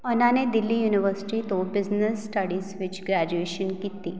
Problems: none marked